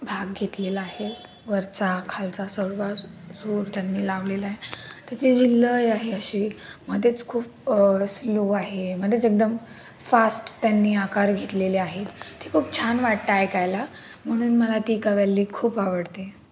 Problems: none marked